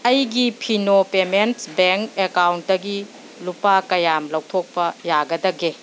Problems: background sounds at intervals